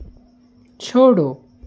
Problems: constant background noise